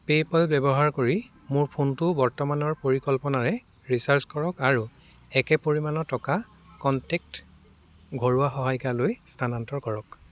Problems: background sounds at intervals, background conversations at intervals